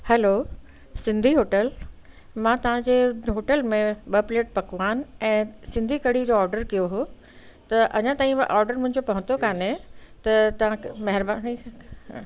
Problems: constant background noise